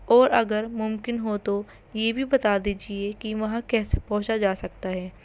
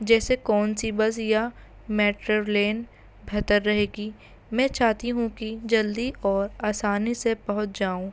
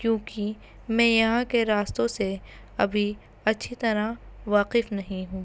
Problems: constant background noise